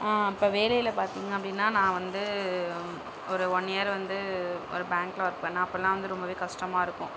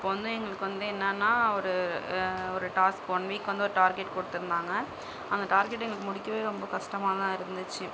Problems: constant background noise